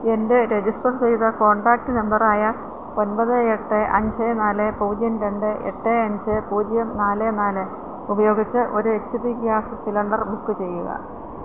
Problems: constant background noise